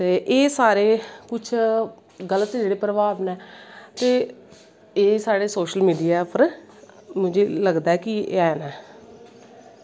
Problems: echo